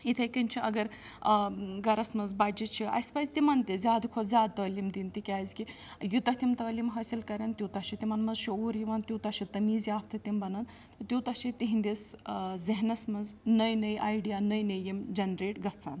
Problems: background sounds at intervals